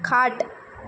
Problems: none marked